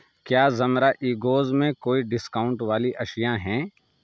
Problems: none marked